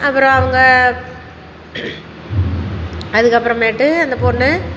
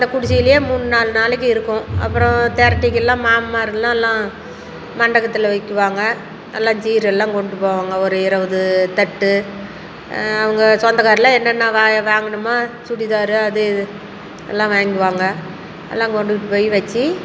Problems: constant background noise